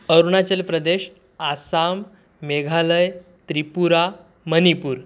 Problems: none marked